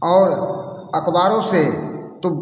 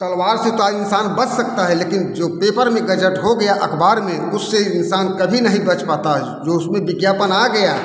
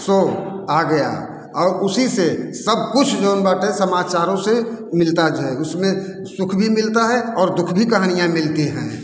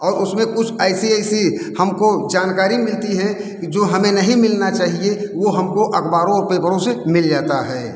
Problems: background sounds at intervals, background conversations at intervals